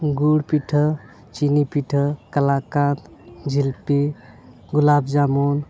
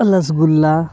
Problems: background sounds at intervals